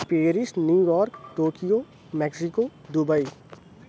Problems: none marked